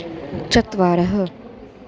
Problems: constant background noise